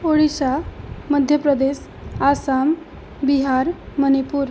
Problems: constant background noise